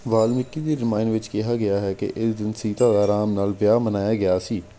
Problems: background sounds at intervals